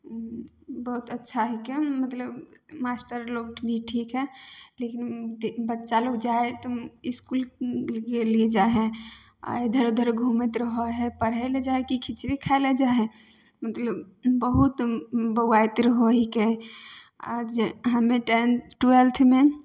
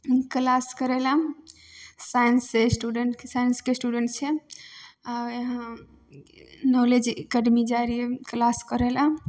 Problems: none marked